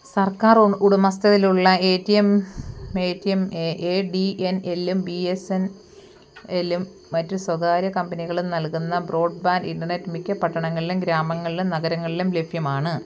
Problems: background sounds at intervals